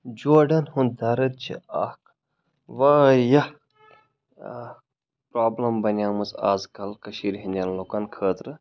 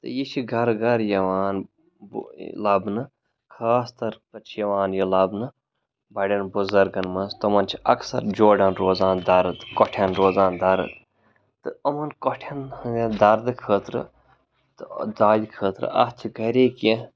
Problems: background sounds at intervals